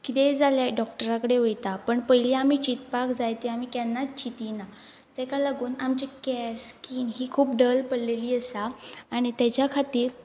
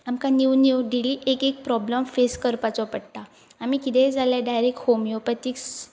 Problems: background sounds at intervals